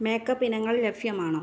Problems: low volume